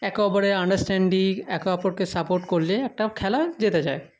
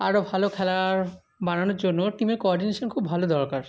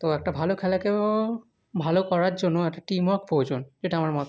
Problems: constant background noise